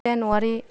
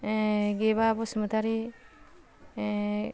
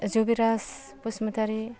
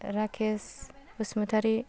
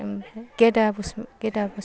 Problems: none marked